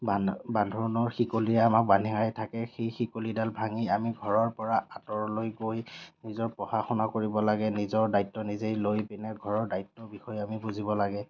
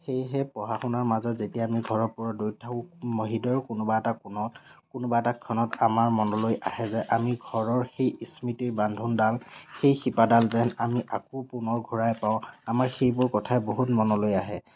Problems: none marked